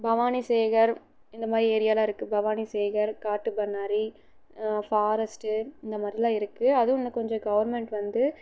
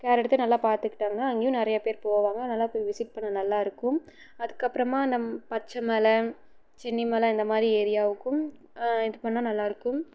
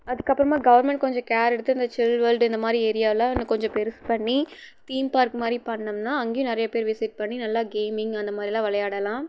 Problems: low volume